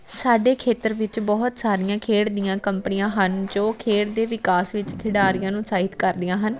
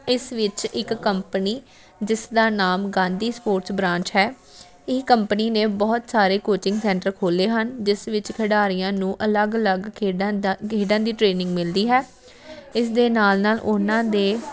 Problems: constant background noise